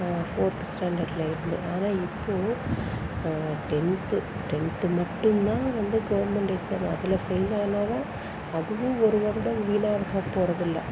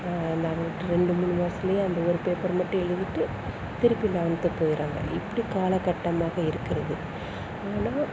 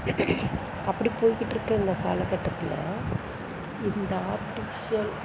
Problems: none marked